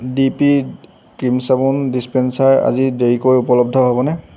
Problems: constant background noise